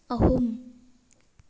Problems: background sounds at intervals